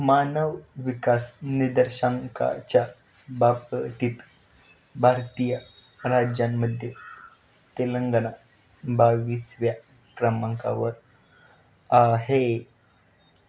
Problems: constant background noise